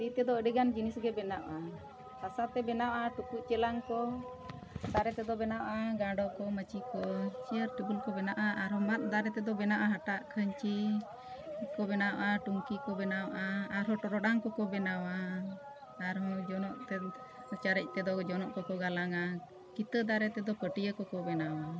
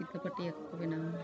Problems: constant background noise